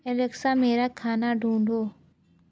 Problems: low volume